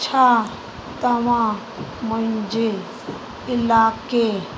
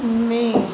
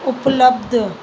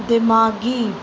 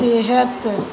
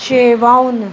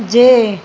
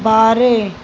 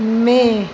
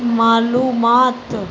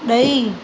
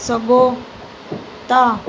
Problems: constant background noise, echo